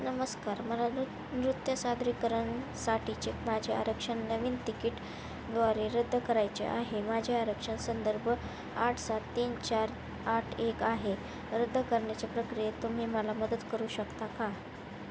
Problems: constant background noise